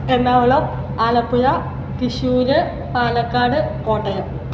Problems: none marked